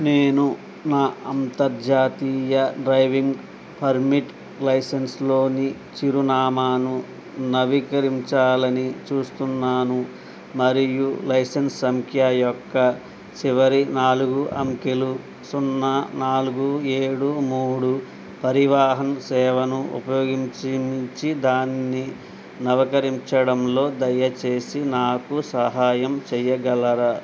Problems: none marked